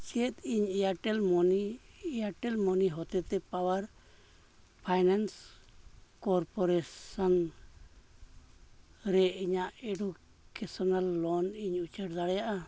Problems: background sounds at intervals